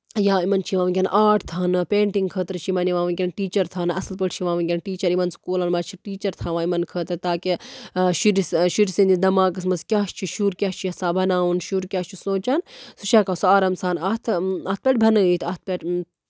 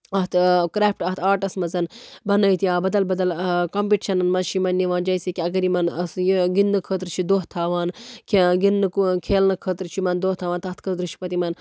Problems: none marked